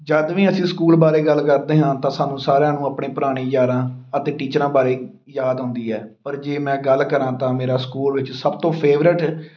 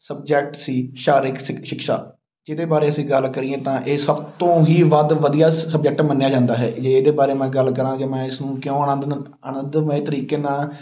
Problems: background sounds at intervals